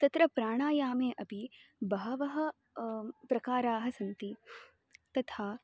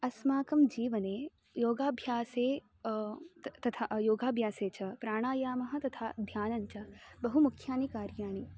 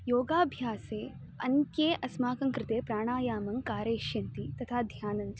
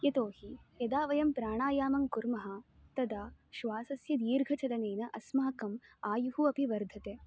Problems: constant background noise